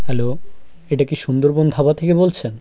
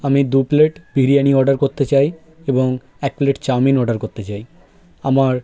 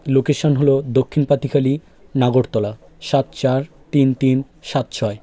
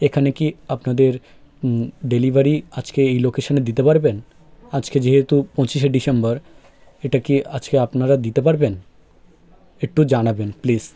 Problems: constant background noise